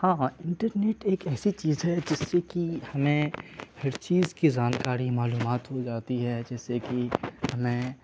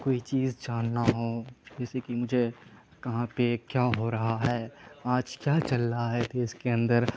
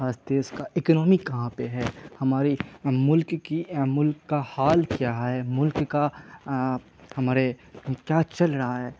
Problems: constant background noise